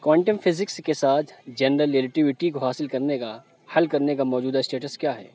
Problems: constant background noise